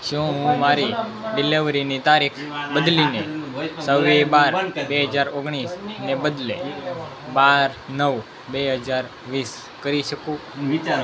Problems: constant background noise